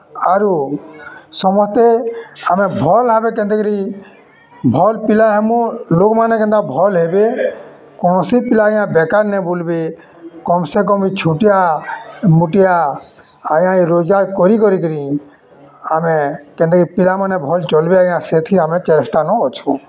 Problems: constant background noise, continuous background conversations